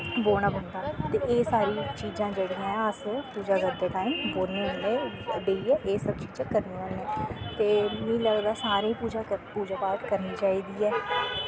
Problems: constant background noise